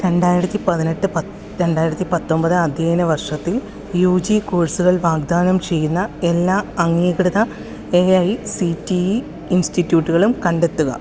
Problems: none marked